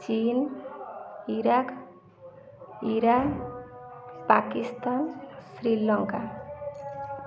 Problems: constant background noise, continuous background conversations